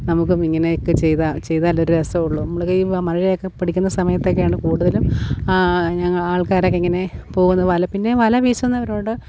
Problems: constant background noise